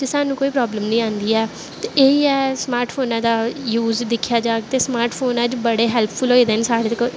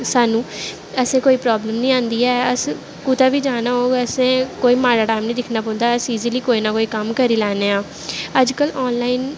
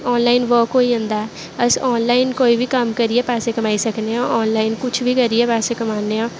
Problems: none marked